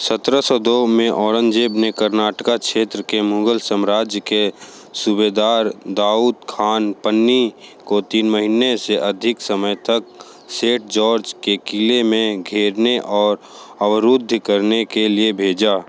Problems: background sounds at intervals